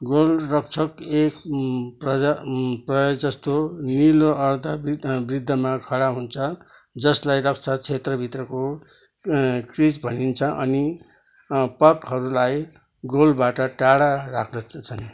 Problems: background sounds at intervals